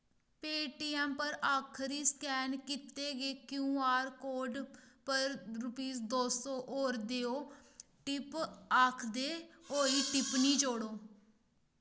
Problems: background sounds at intervals